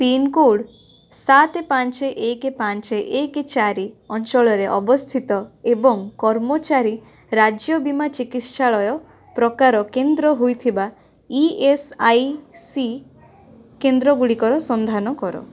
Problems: constant background noise, continuous background conversations